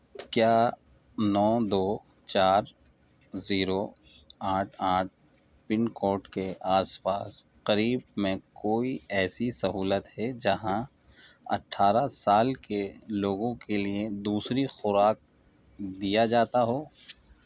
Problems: none marked